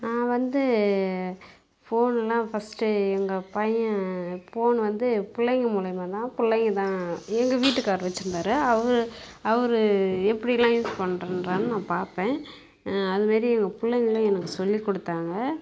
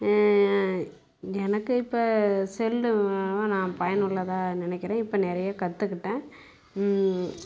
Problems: constant background noise